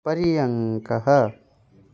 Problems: none marked